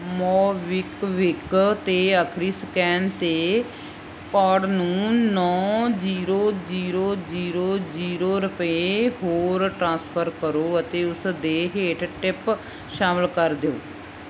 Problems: none marked